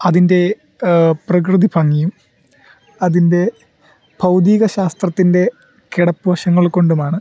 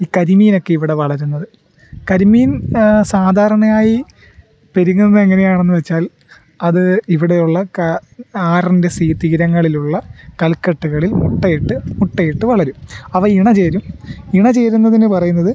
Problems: background sounds at intervals